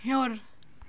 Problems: background sounds at intervals